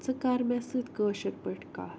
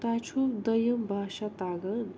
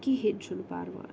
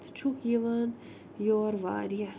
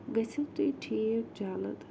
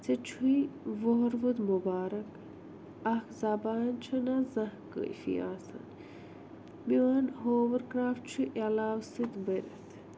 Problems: none marked